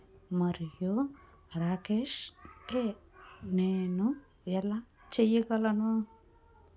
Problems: background sounds at intervals, background conversations at intervals